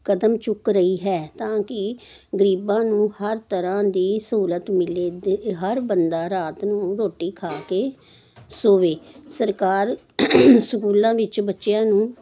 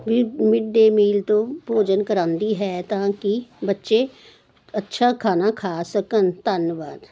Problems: none marked